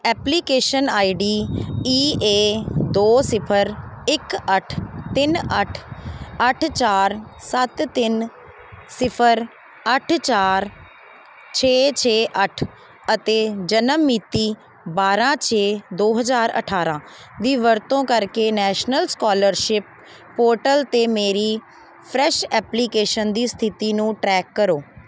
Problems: none marked